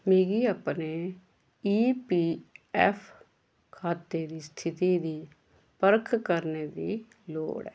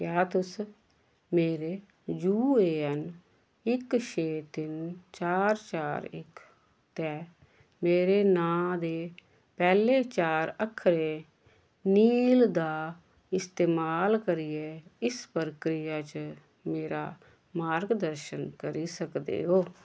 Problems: none marked